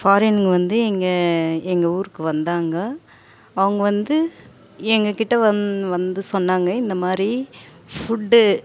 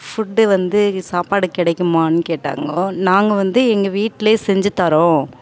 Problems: background sounds at intervals